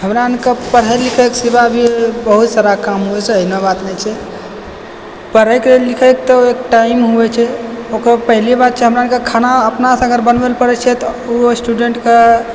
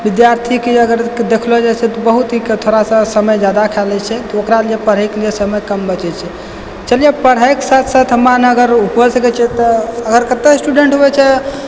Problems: background sounds at intervals